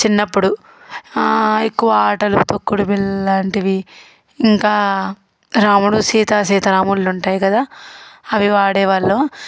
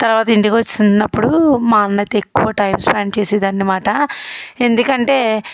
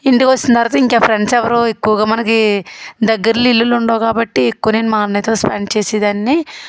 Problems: background sounds at intervals